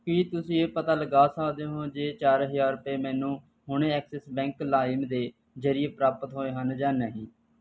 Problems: none marked